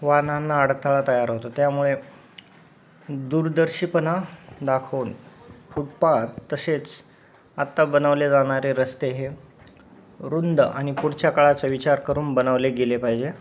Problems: none marked